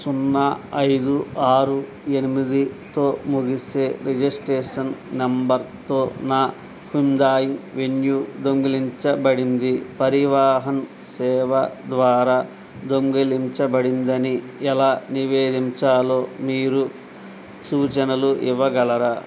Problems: none marked